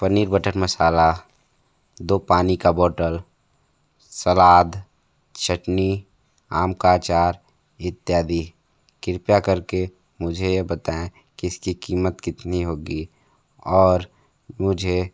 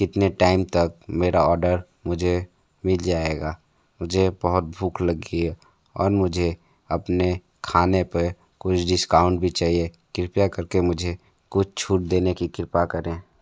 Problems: none marked